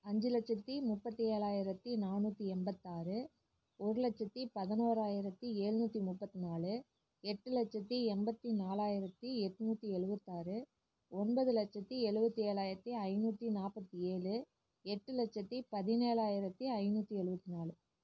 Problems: none marked